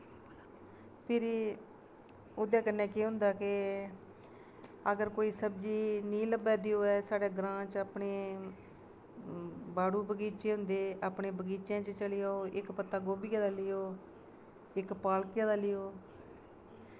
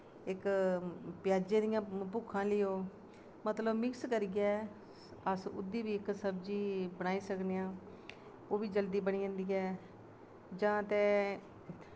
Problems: none marked